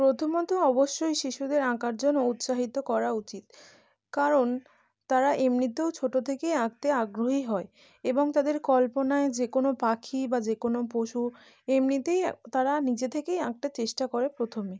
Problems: none marked